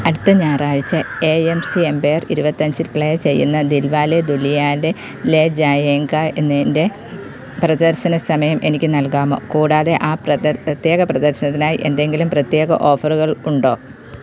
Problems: background sounds at intervals